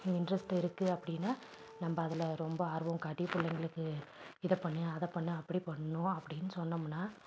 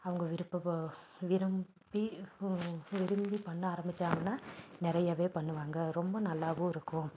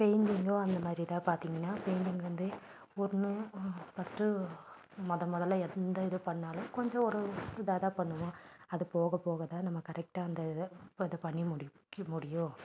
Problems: background sounds at intervals, low volume